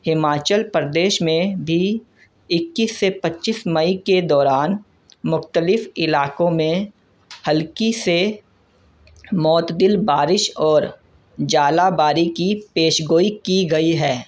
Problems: constant background noise